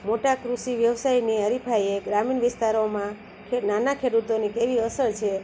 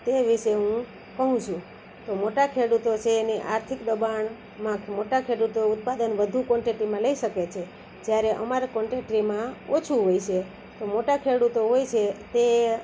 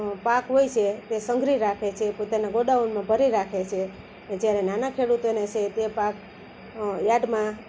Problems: constant background noise